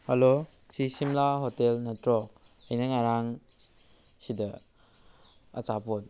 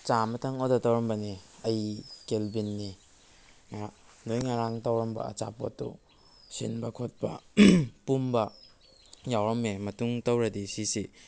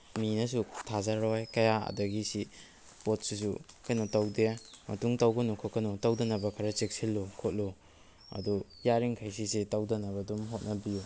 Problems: background sounds at intervals